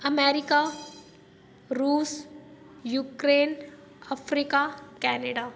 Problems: none marked